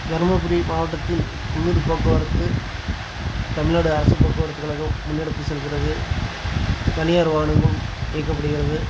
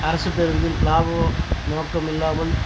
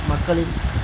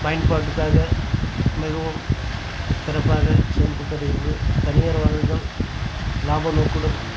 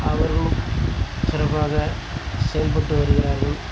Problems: constant background noise